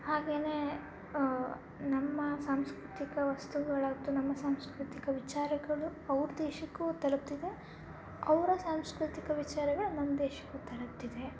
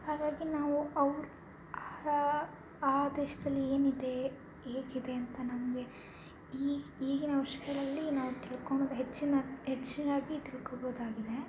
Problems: constant background noise, low volume